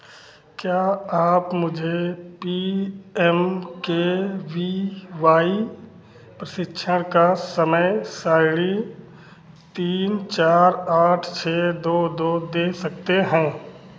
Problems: none marked